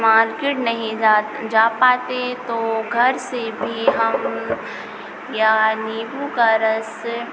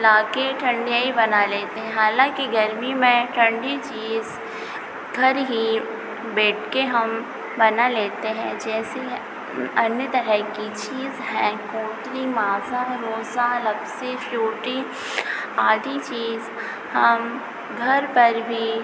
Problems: constant background noise